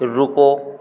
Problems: background sounds at intervals